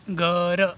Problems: none marked